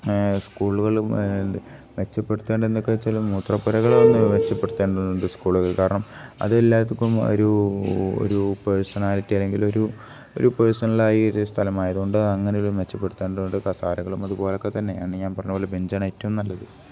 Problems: none marked